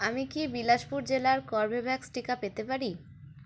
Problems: none marked